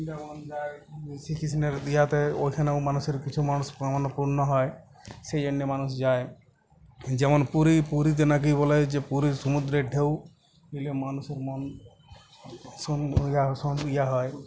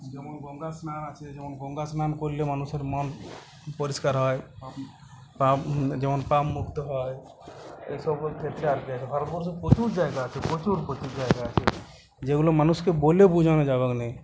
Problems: constant background noise